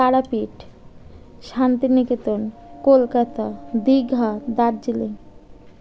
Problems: constant background noise